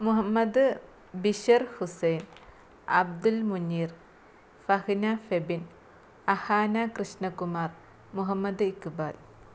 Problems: low volume